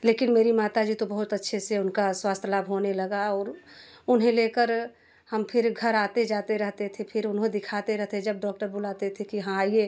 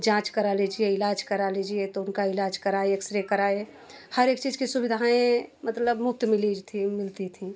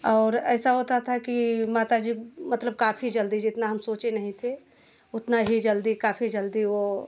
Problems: none marked